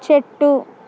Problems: constant background noise